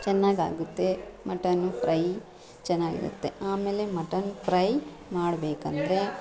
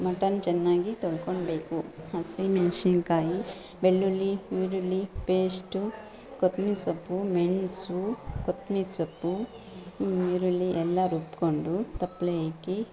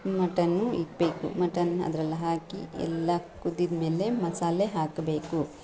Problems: background sounds at intervals, background conversations at intervals